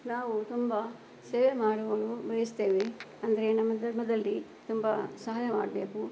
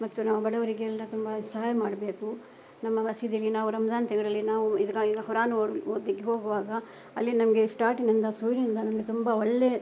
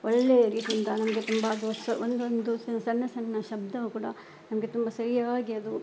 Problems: background sounds at intervals